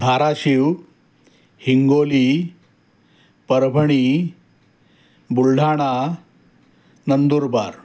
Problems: constant background noise